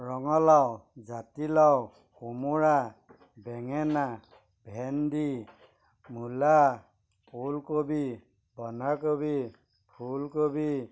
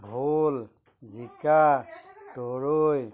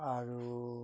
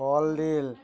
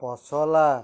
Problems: constant background noise, background conversations at intervals